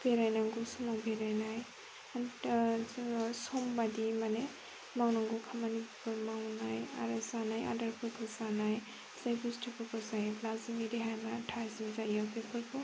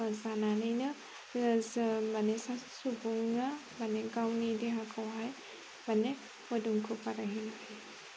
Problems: constant background noise